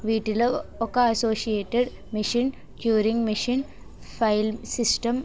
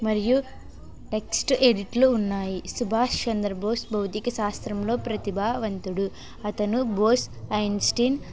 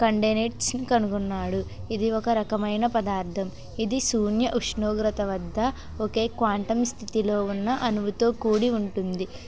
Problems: constant background noise, background conversations at intervals